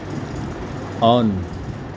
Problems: constant background noise